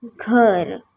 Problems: none marked